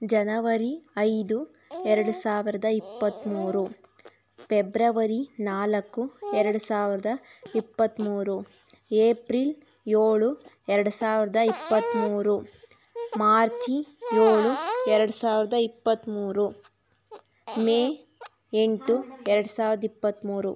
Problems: background sounds at intervals